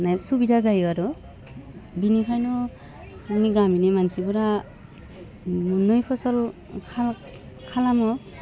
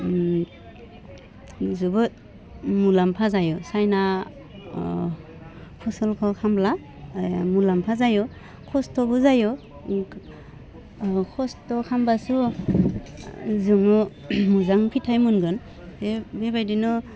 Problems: none marked